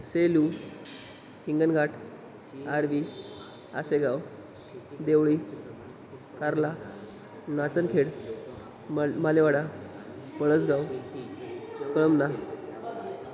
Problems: constant background noise